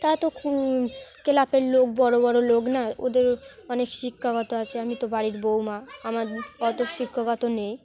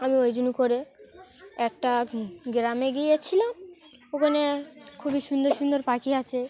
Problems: constant background noise, background conversations at intervals